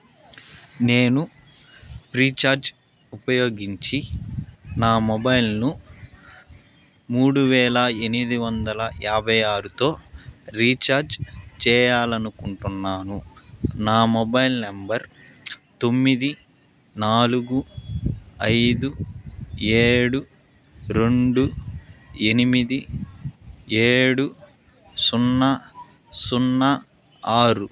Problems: background sounds at intervals